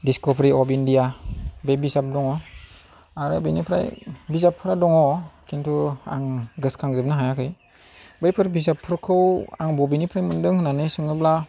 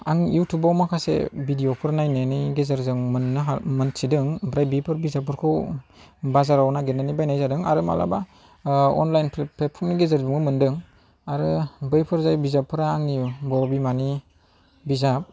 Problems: none marked